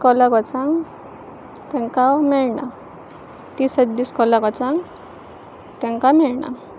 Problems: constant background noise, continuous background conversations